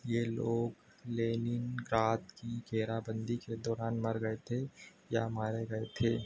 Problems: none marked